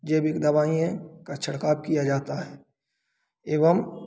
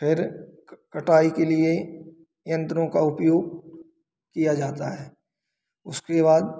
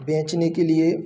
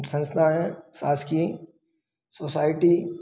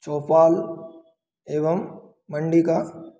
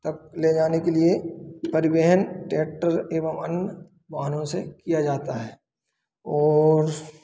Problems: none marked